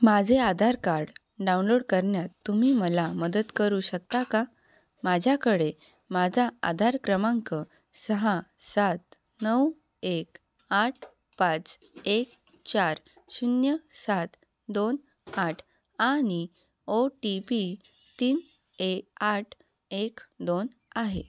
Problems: background sounds at intervals